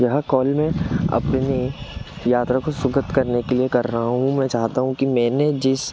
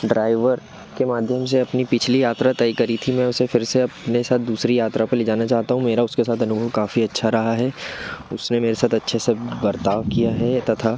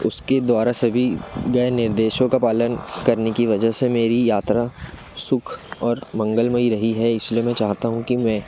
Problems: background sounds at intervals